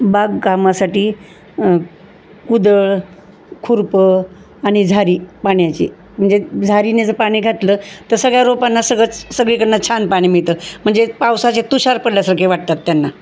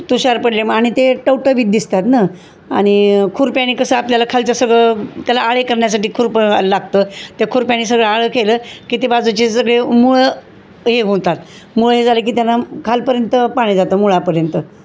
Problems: constant background noise